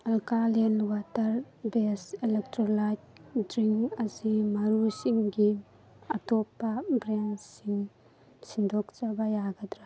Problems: background conversations at intervals